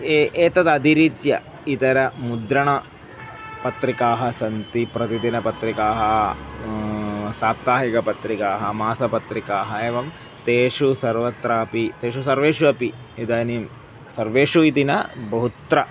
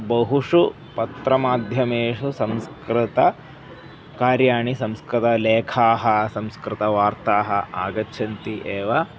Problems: background sounds at intervals